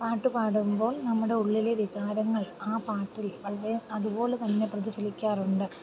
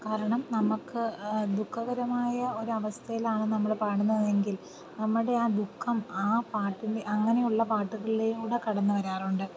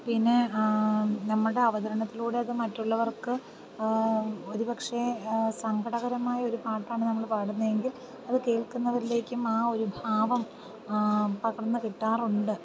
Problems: constant background noise, low volume